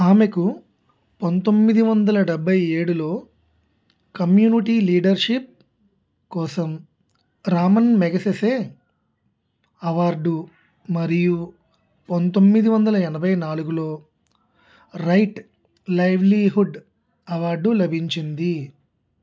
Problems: none marked